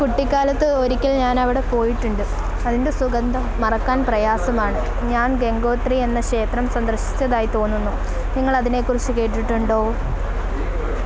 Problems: none marked